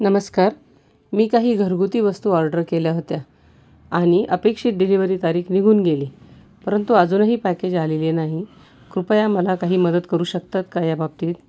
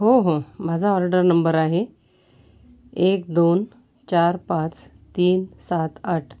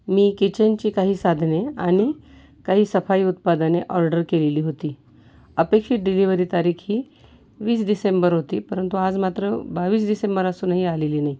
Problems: background sounds at intervals